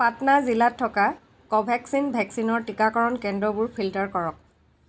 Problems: constant background noise